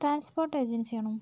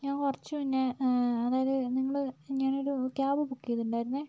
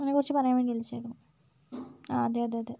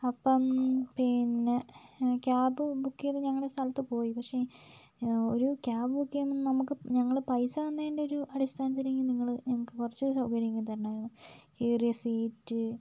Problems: low volume